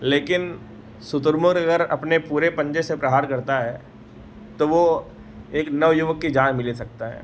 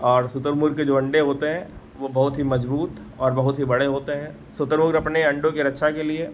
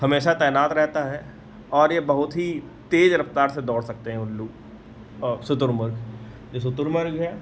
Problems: background sounds at intervals